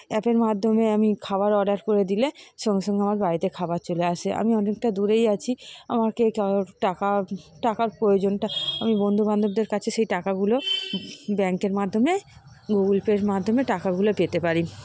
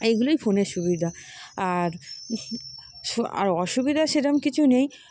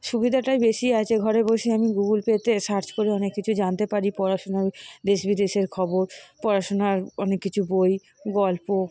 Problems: constant background noise